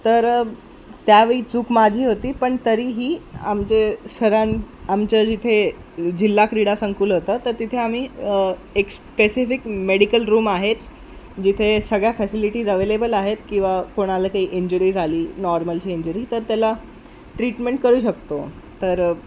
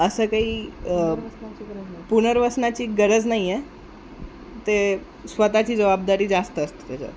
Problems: constant background noise, background conversations at intervals